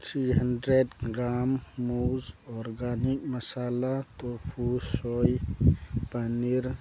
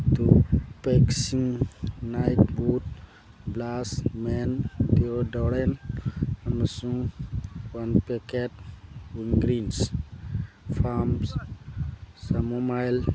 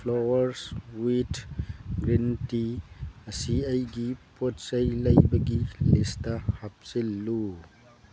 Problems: constant background noise, background conversations at intervals